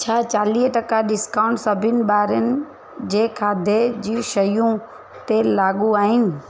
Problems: constant background noise